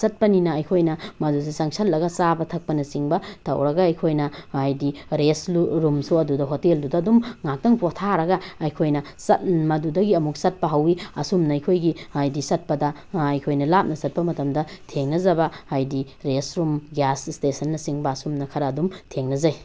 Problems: none marked